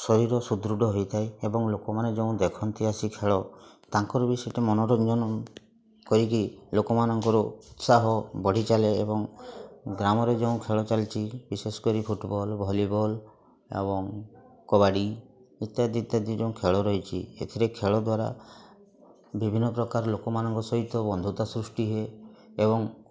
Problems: constant background noise, continuous background conversations